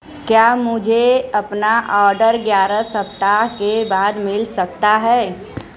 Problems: none marked